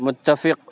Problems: constant background noise